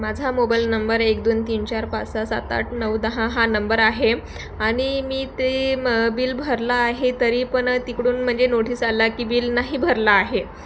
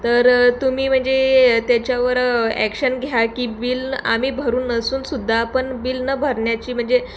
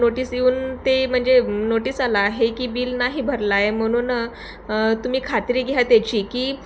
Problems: none marked